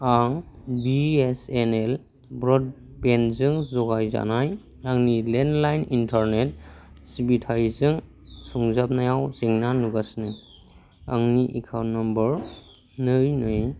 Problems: constant background noise